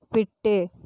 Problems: none marked